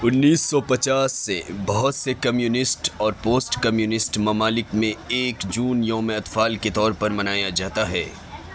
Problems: constant background noise, continuous background conversations